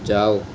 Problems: constant background noise